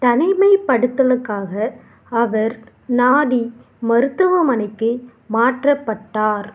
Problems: background sounds at intervals